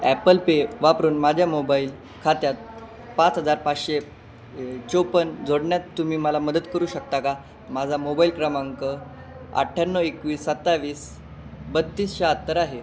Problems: none marked